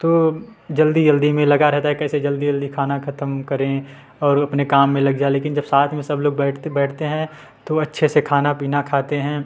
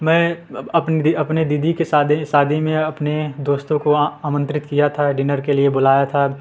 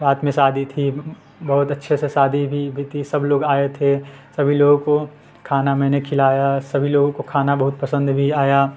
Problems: continuous background conversations